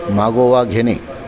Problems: constant background noise, continuous background conversations